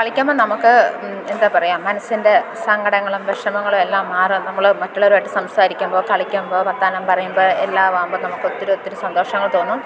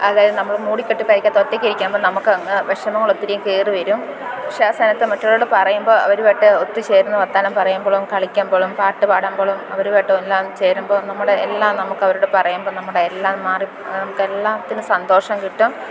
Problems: constant background noise, background conversations at intervals